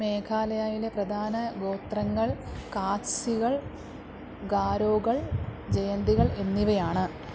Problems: background sounds at intervals